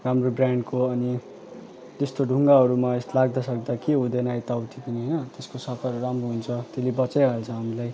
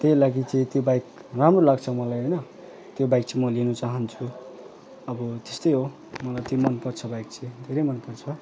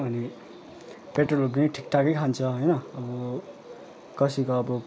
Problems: constant background noise, continuous background conversations